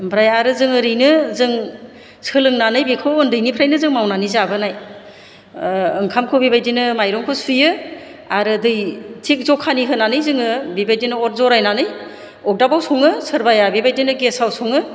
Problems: low volume